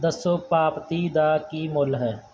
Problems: background sounds at intervals